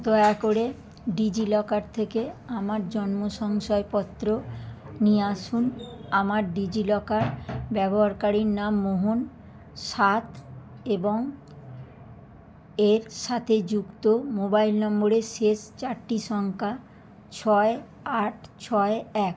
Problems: constant background noise